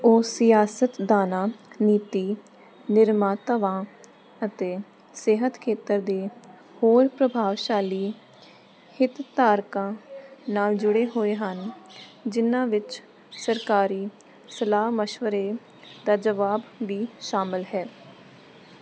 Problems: constant background noise